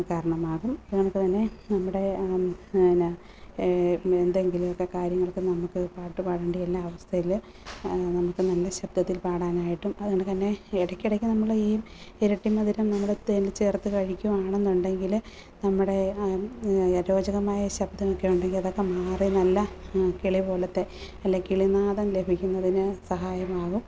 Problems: constant background noise